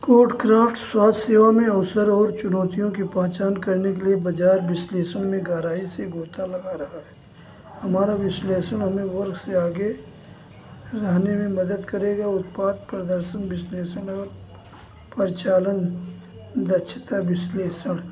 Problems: constant background noise